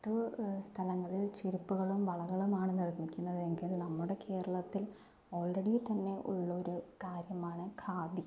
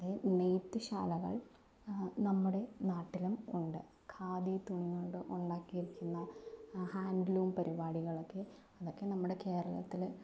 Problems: low volume